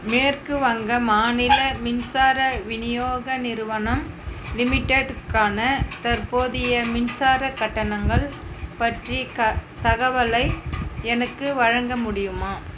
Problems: constant background noise